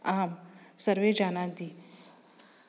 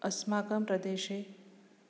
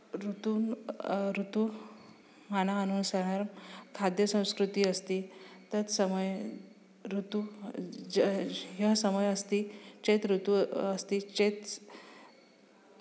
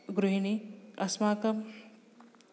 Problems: none marked